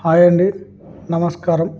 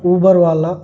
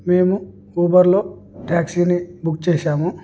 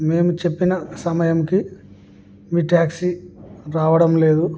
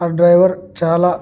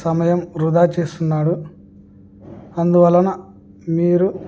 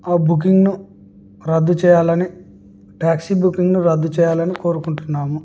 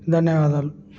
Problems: none marked